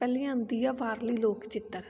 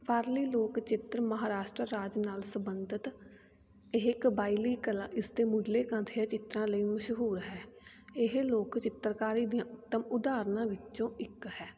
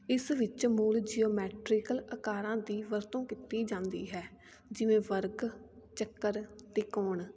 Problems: background sounds at intervals